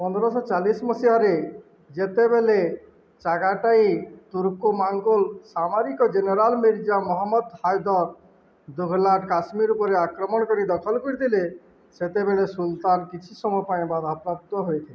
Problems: none marked